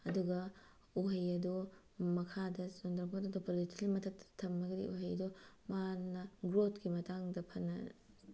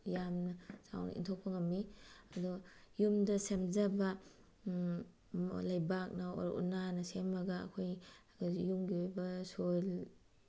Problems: none marked